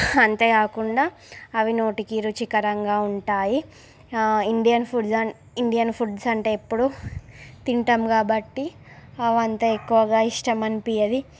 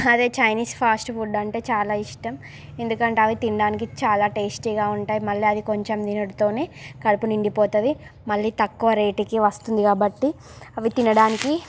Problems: background sounds at intervals